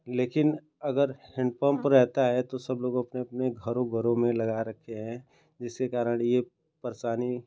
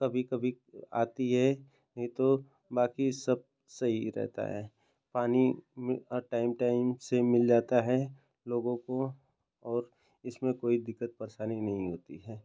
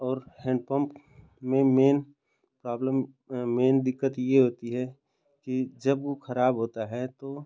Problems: none marked